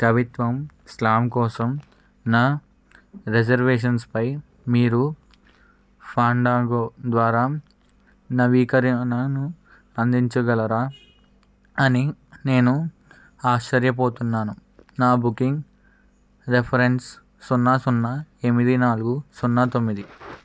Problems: none marked